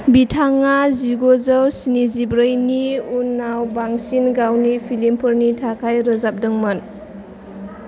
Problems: constant background noise